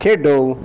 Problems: none marked